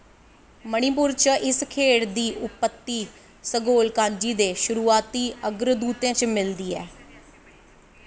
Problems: none marked